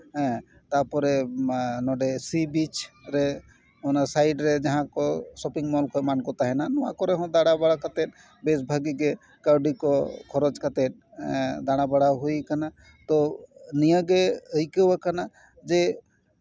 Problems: background sounds at intervals, background conversations at intervals